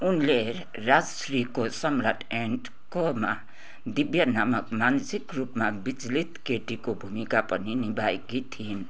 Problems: continuous background conversations